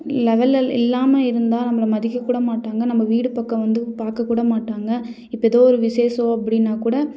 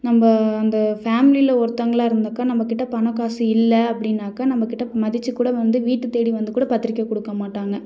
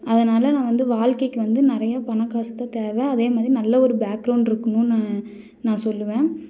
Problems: none marked